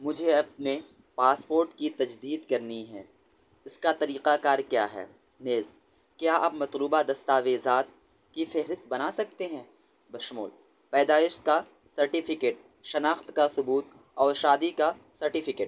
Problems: none marked